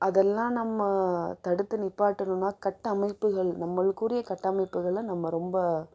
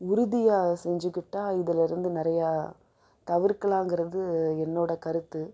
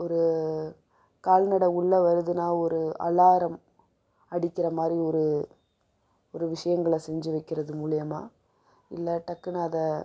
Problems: low volume